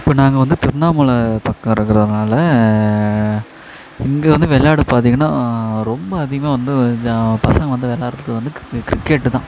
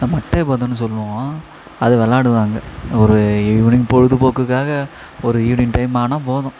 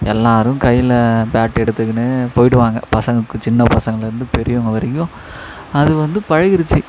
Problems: echo